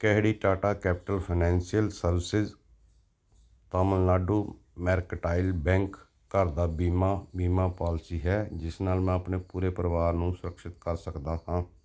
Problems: none marked